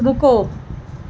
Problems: constant background noise